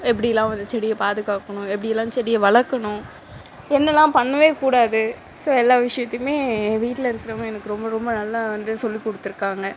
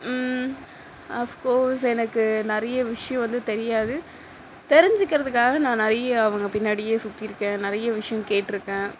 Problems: constant background noise